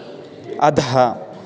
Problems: constant background noise, continuous background conversations